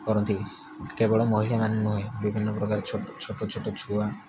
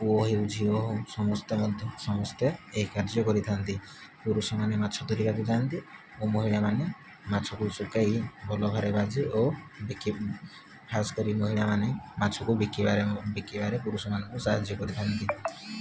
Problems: constant background noise